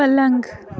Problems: constant background noise